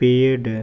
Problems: none marked